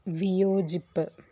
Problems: none marked